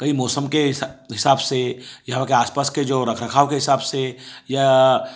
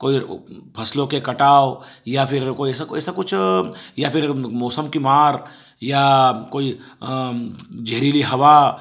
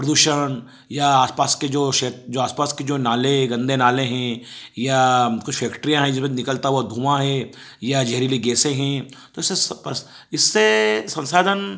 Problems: background sounds at intervals